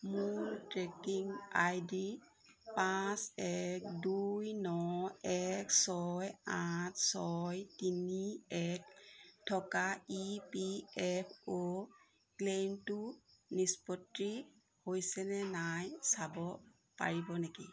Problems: background sounds at intervals